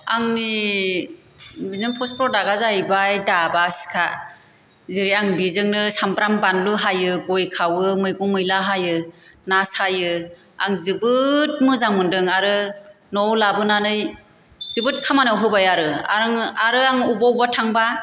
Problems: constant background noise